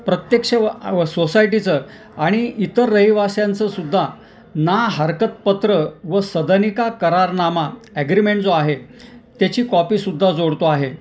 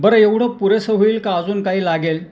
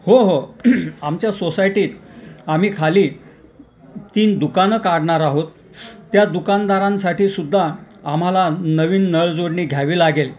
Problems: none marked